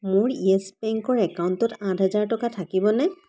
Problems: constant background noise